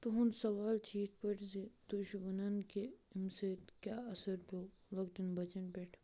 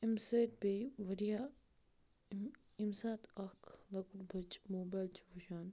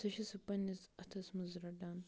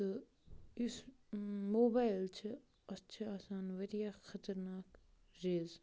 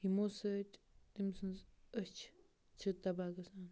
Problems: none marked